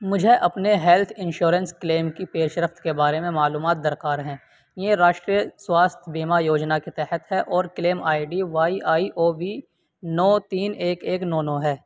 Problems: none marked